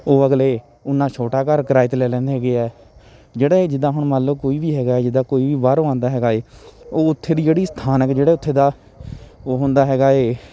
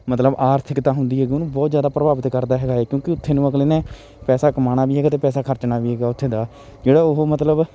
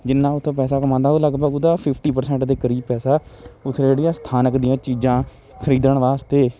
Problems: continuous background conversations